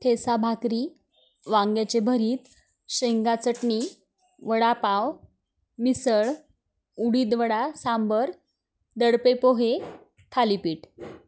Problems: none marked